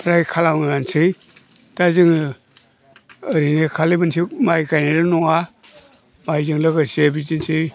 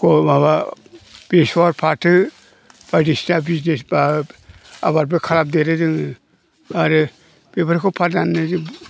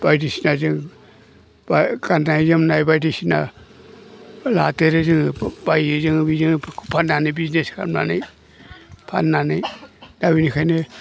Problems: low volume